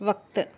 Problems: none marked